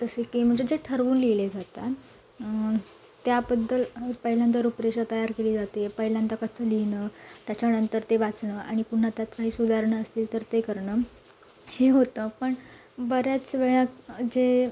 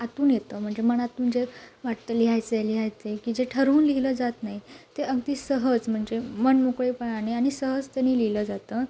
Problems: none marked